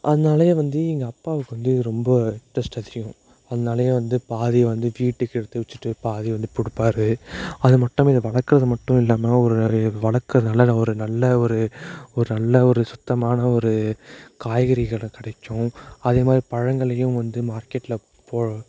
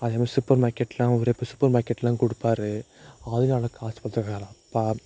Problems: none marked